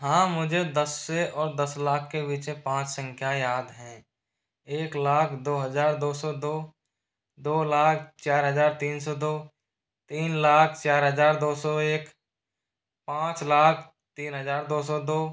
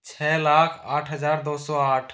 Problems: none marked